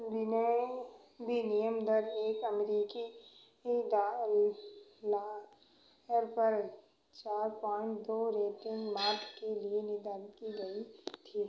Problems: background sounds at intervals, echo